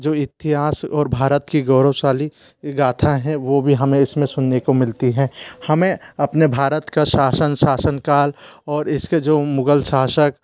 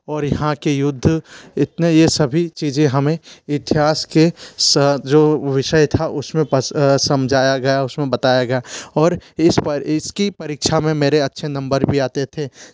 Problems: constant background noise